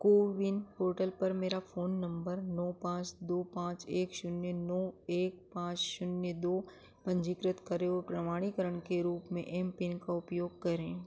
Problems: none marked